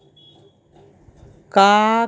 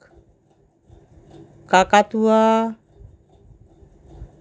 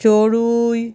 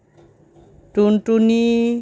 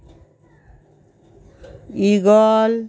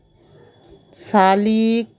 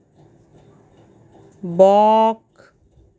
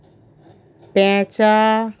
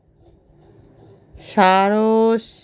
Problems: none marked